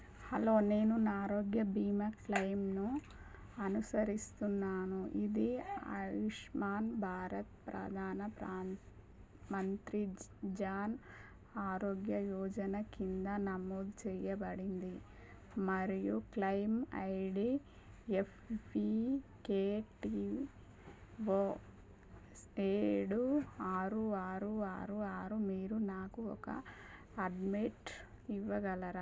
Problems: low volume